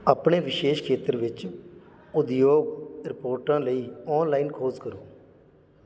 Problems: background sounds at intervals